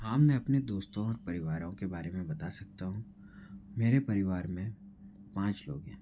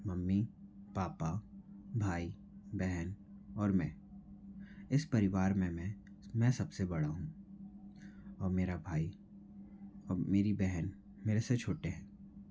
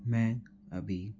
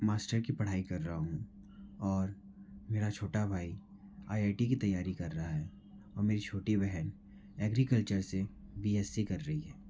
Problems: low volume